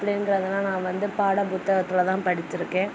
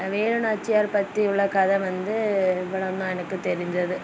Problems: constant background noise